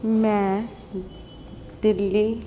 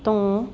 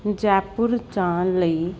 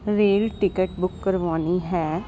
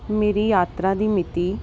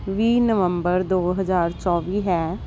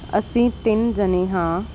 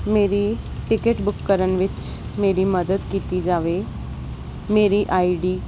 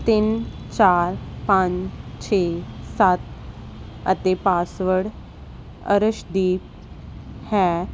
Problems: none marked